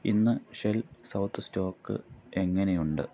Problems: background sounds at intervals